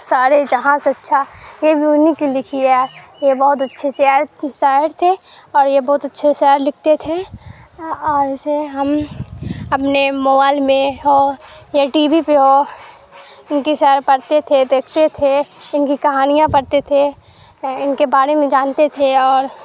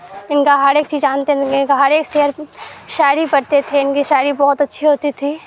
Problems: constant background noise